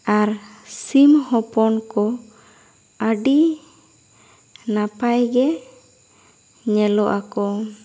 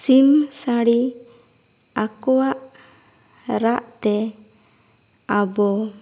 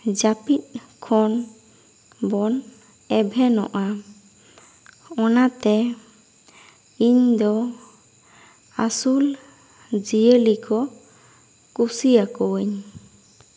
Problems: none marked